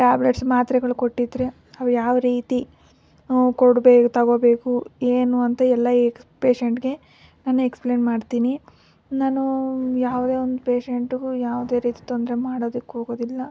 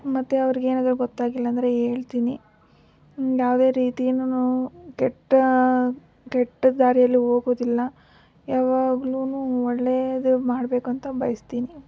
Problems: none marked